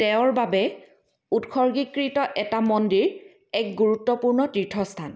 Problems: none marked